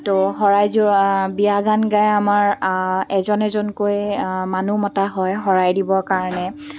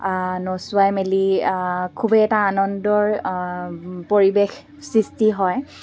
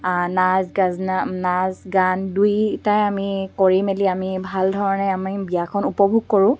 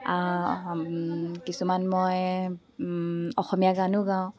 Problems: background sounds at intervals